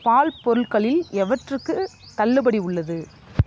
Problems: constant background noise